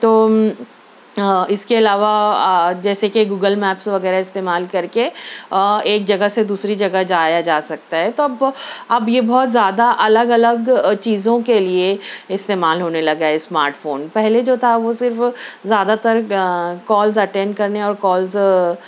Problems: none marked